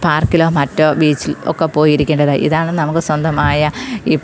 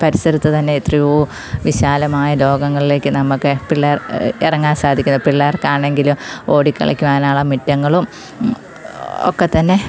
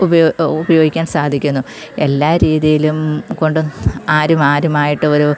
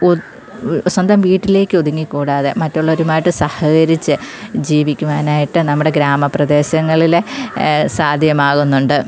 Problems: none marked